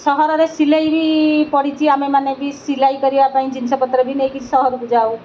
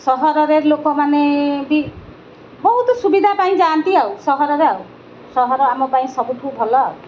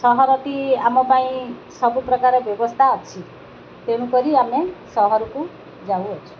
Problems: none marked